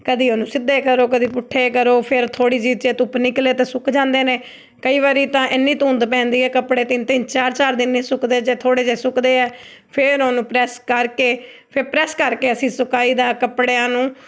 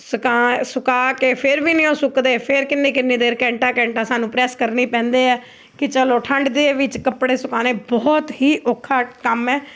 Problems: background sounds at intervals